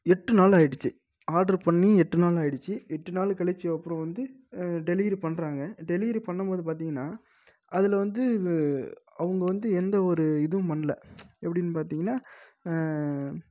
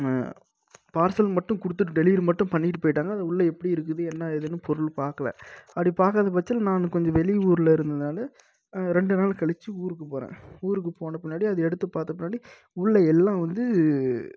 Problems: low volume